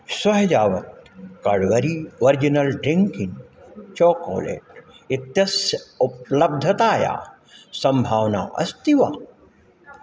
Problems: background sounds at intervals